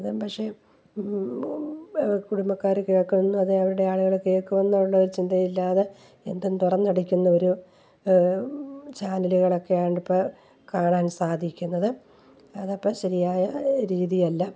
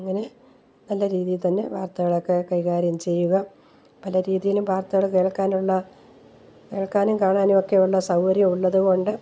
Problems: none marked